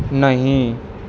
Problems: none marked